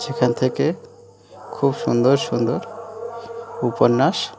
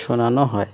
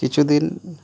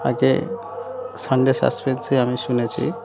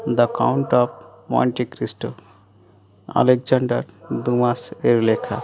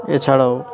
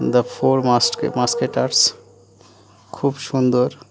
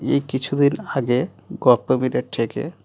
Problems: continuous background conversations